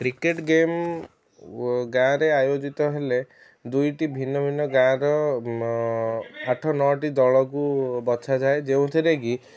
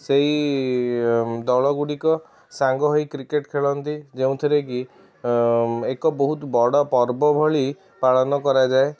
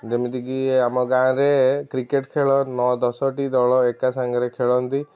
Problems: background sounds at intervals, background conversations at intervals